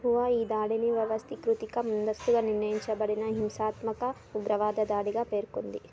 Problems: background sounds at intervals, background conversations at intervals